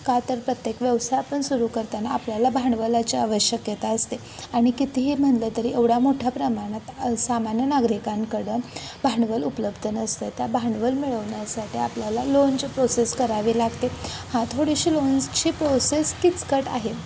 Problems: constant background noise, background conversations at intervals